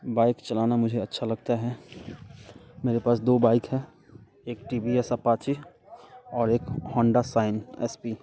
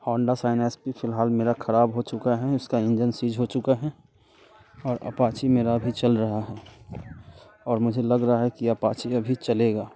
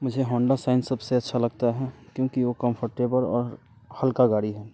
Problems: none marked